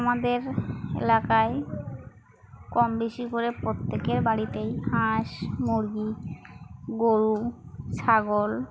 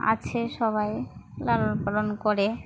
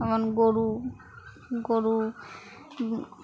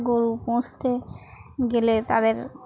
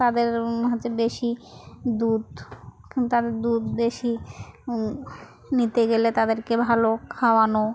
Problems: constant background noise, continuous background conversations